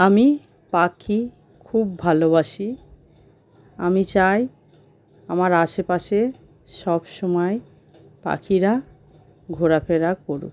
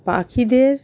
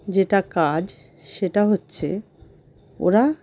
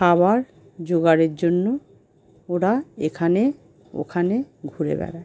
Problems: constant background noise